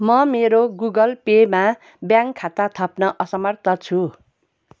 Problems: none marked